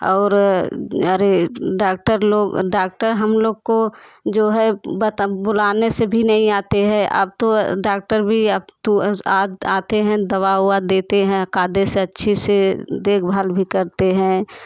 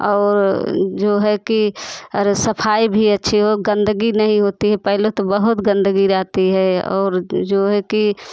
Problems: constant background noise, background conversations at intervals